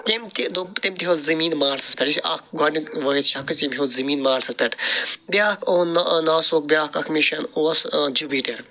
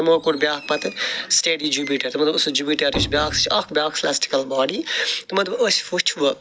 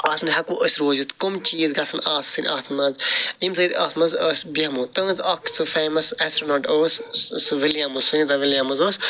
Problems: background sounds at intervals